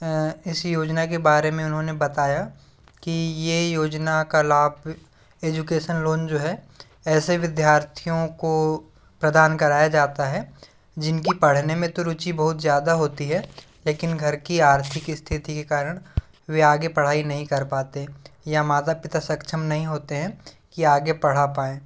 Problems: background sounds at intervals